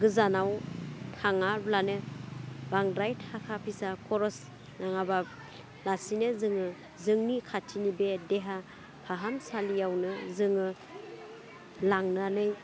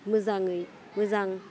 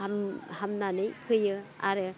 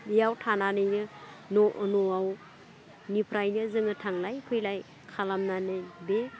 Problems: low volume